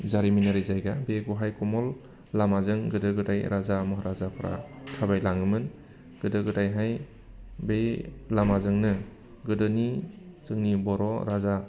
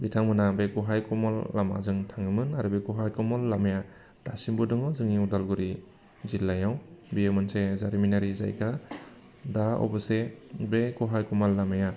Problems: constant background noise